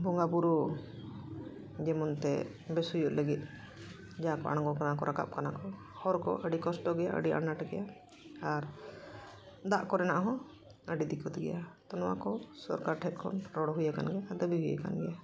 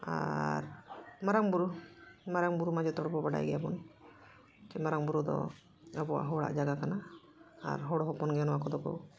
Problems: background sounds at intervals